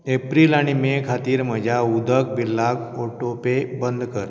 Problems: none marked